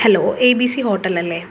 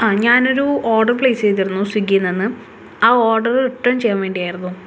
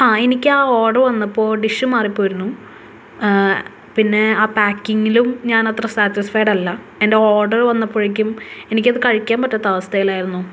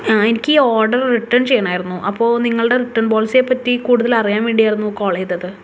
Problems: background sounds at intervals